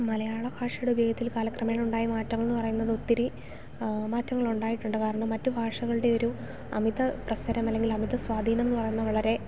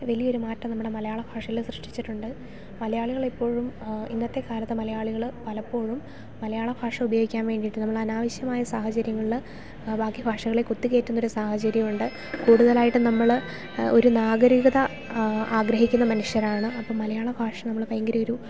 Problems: background sounds at intervals